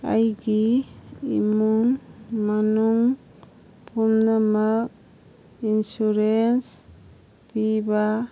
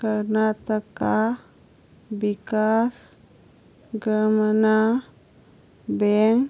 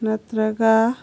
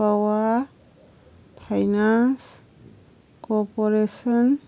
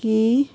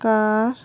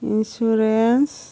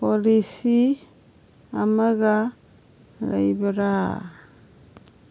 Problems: none marked